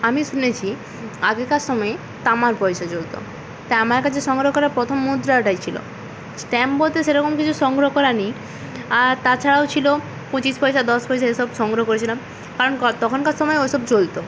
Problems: constant background noise